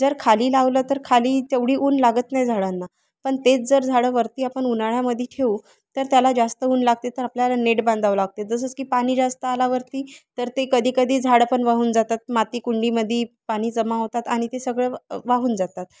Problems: constant background noise